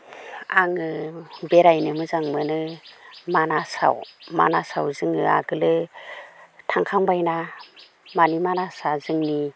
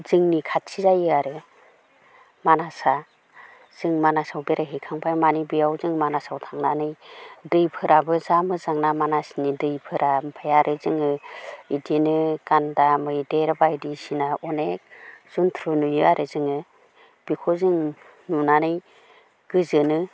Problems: none marked